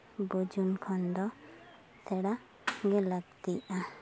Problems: constant background noise, background conversations at intervals